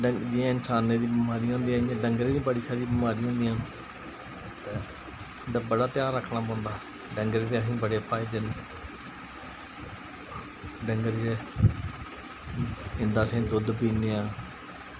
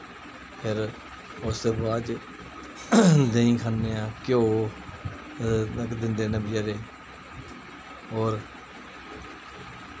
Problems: constant background noise